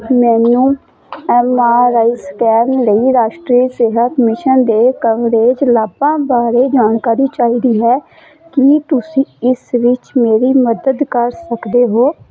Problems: none marked